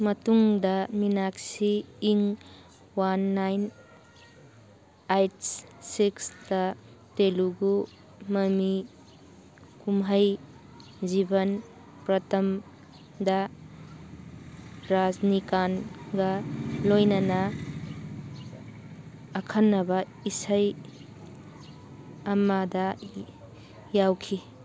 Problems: background sounds at intervals